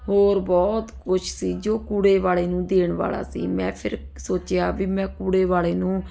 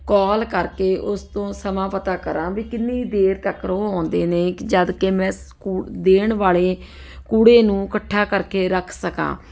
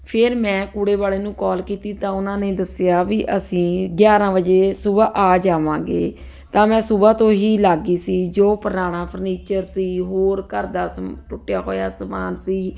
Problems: none marked